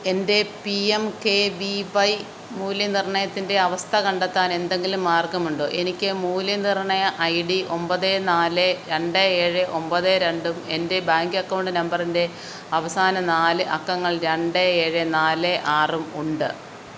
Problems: none marked